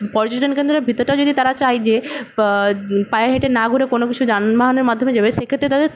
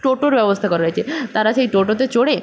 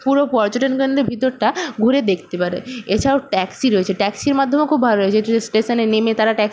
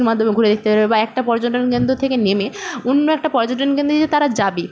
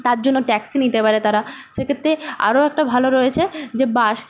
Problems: constant background noise, background conversations at intervals